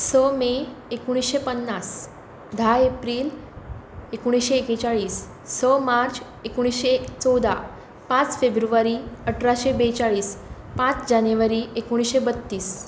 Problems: constant background noise